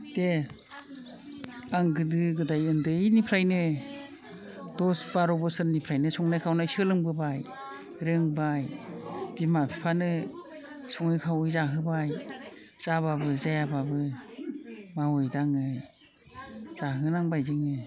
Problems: low volume